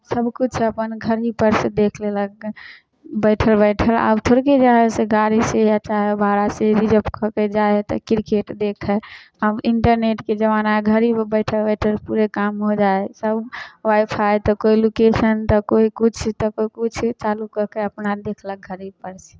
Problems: none marked